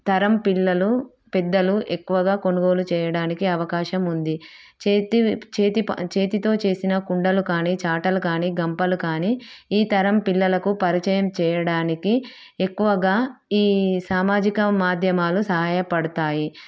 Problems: none marked